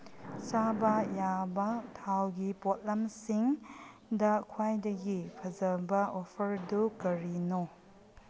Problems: background sounds at intervals